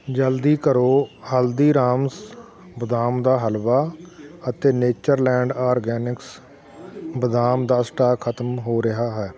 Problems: continuous background conversations